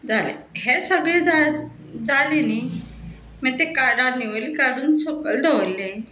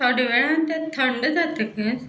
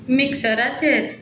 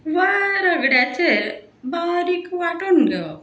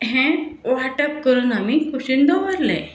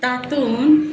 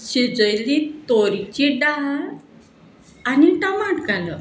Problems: background sounds at intervals, background conversations at intervals